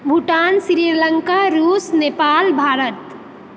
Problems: none marked